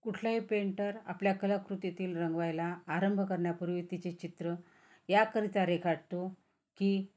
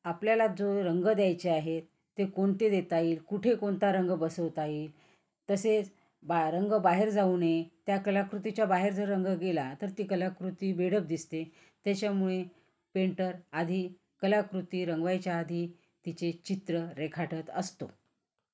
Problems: constant background noise, background conversations at intervals